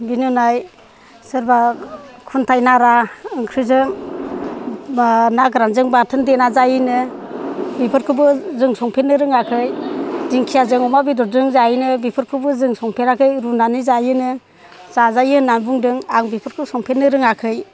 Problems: none marked